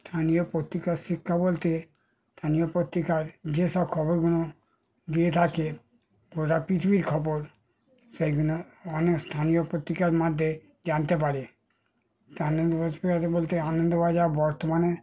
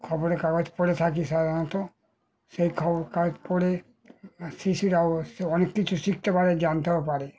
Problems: background sounds at intervals, background conversations at intervals